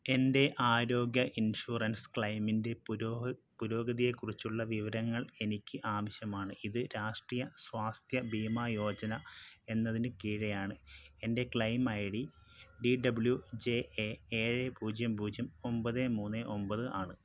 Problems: low volume